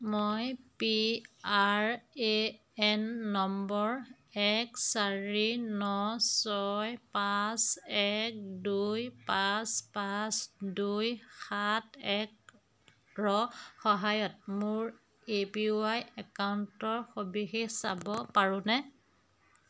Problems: constant background noise